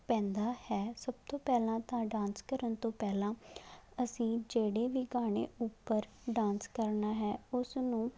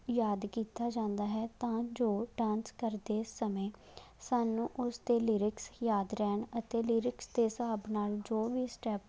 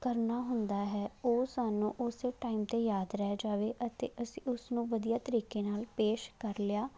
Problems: none marked